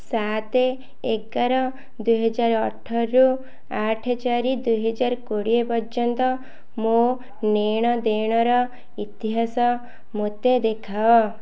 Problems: none marked